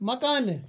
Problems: none marked